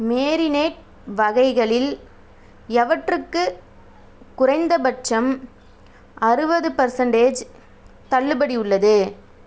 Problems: none marked